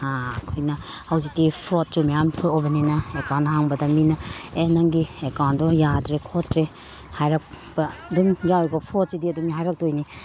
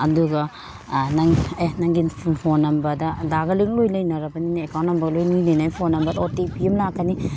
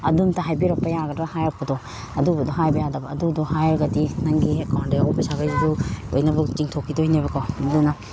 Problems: background sounds at intervals